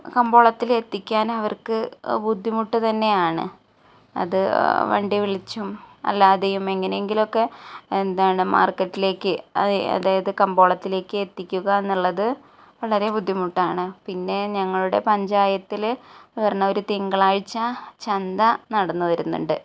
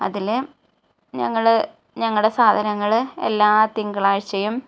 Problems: none marked